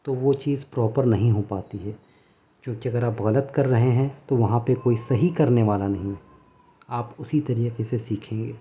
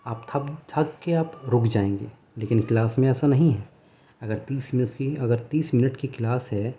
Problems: none marked